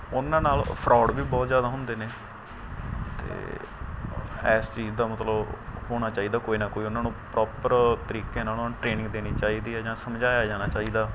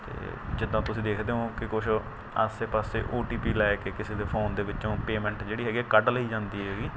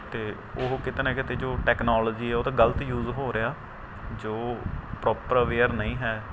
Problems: constant background noise